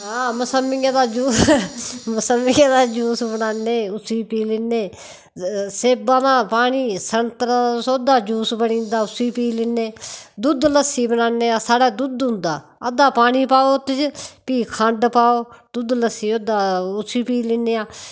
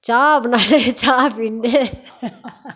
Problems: constant background noise